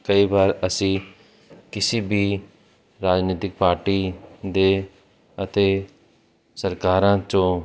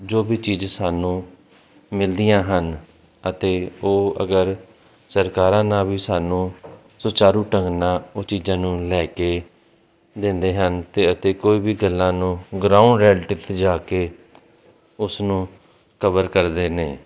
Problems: none marked